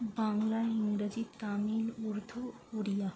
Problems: constant background noise, low volume